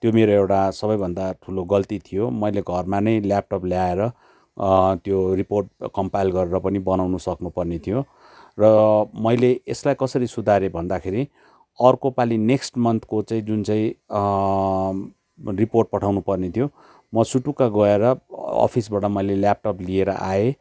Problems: background sounds at intervals